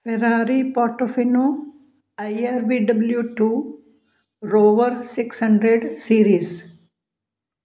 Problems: background sounds at intervals